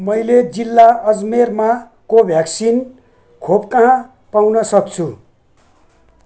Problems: background sounds at intervals